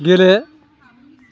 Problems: none marked